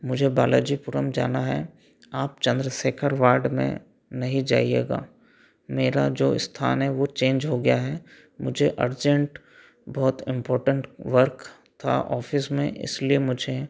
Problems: none marked